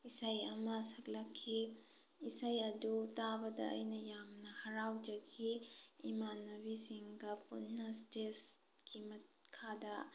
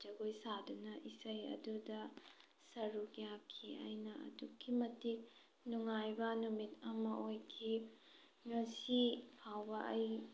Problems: background sounds at intervals